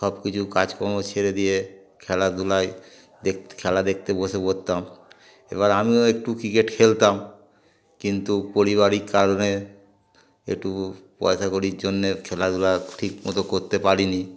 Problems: constant background noise, background conversations at intervals